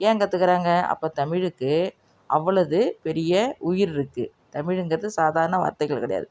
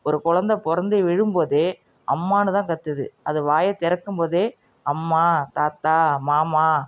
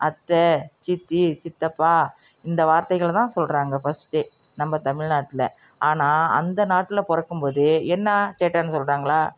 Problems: none marked